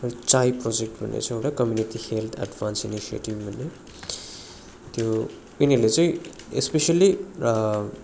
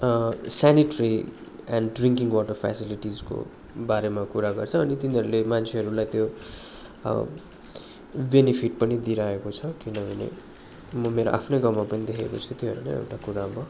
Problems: constant background noise